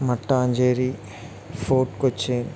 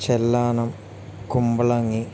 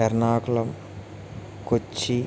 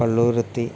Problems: constant background noise